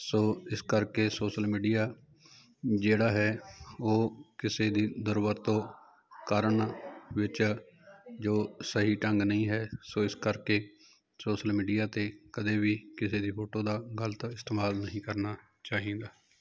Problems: continuous background conversations